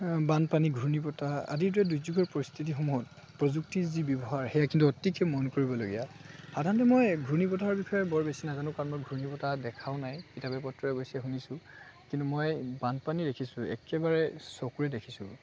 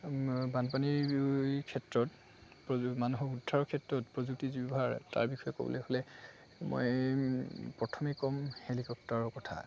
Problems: constant background noise, background conversations at intervals